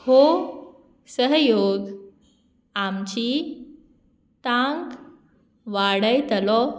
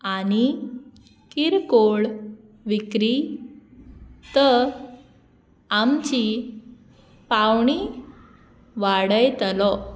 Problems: background sounds at intervals